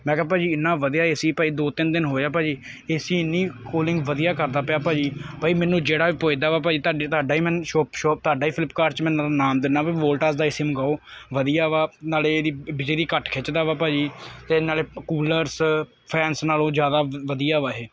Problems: none marked